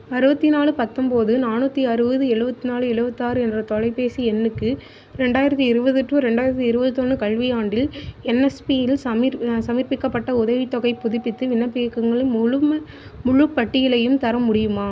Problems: constant background noise